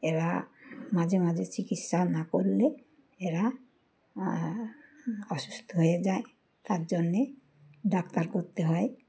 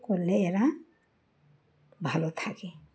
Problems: constant background noise